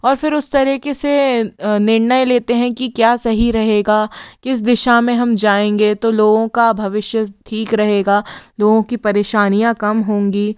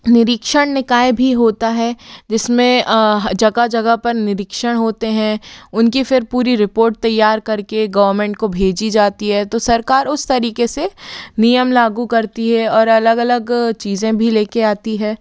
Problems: background sounds at intervals